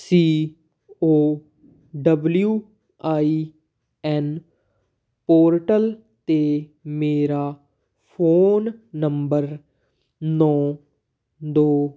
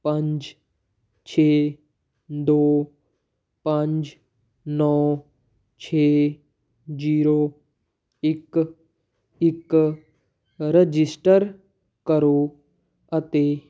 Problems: background sounds at intervals